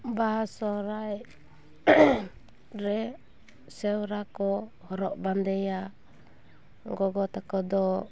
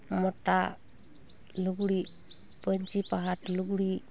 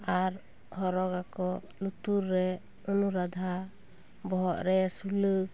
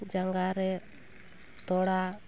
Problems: continuous background conversations